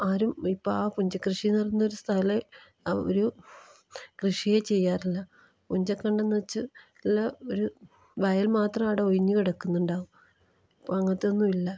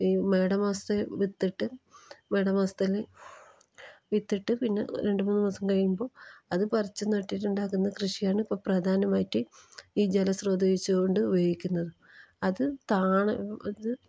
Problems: low volume